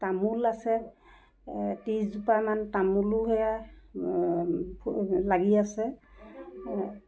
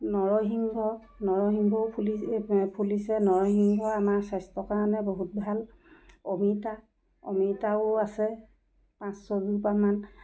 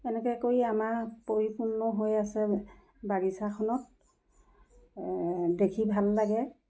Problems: background sounds at intervals